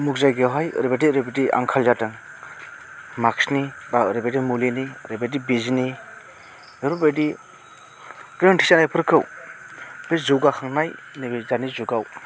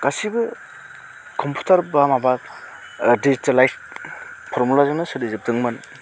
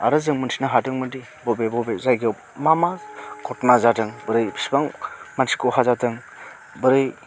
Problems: constant background noise